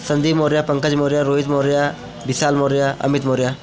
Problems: none marked